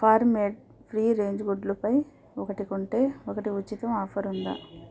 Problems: background sounds at intervals